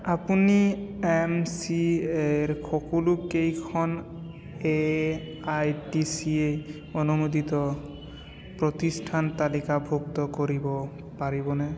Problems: constant background noise